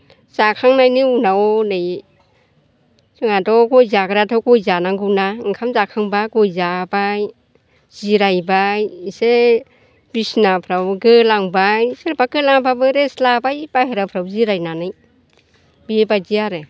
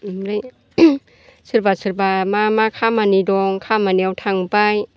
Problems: none marked